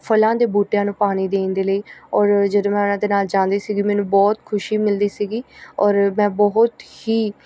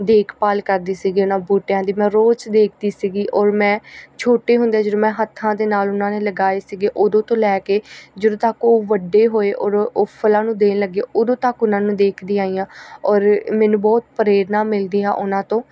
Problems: none marked